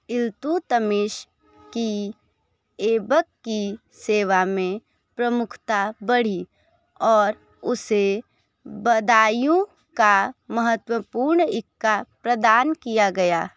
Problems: background sounds at intervals